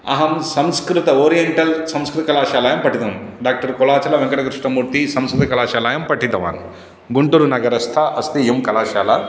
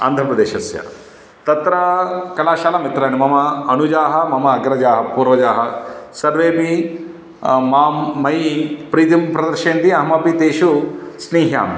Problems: none marked